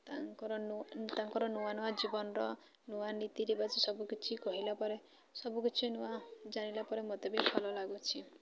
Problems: constant background noise, continuous background conversations